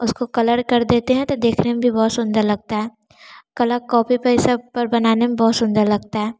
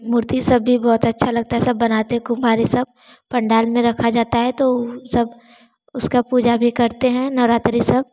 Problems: background sounds at intervals